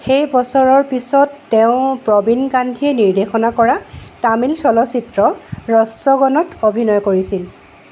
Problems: background sounds at intervals